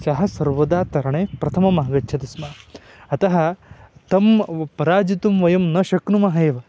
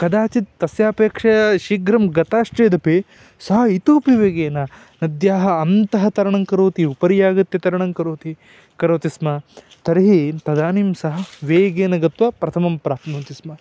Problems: background sounds at intervals